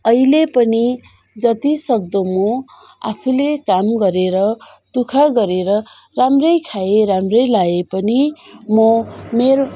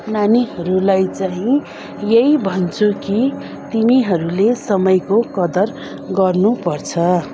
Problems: constant background noise